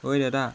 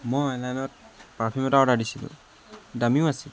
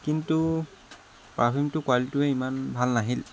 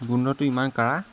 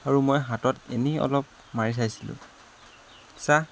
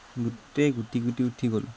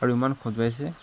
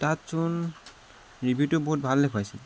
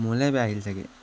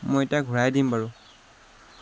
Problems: constant background noise